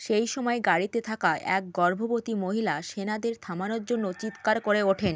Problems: background sounds at intervals